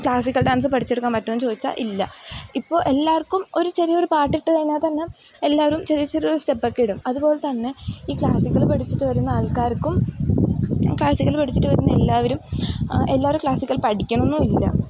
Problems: background sounds at intervals